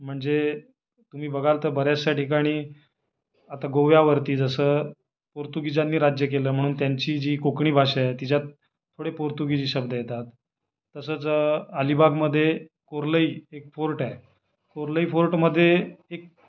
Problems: background sounds at intervals